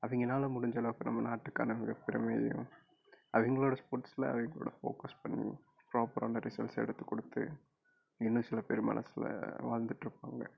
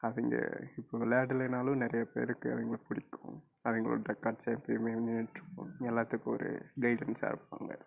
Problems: low volume